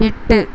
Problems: constant background noise